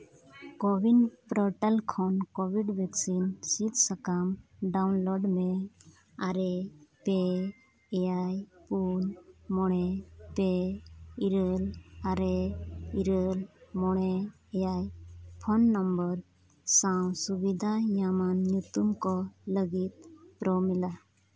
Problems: none marked